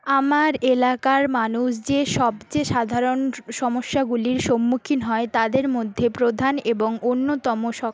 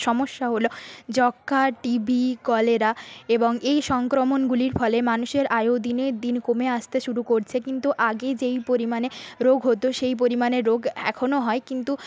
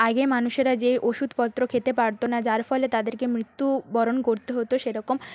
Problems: background sounds at intervals